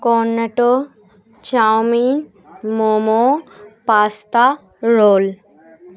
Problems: none marked